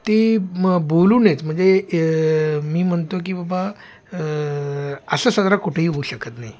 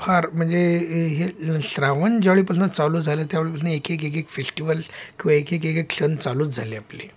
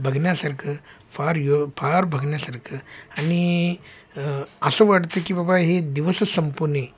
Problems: background sounds at intervals, background conversations at intervals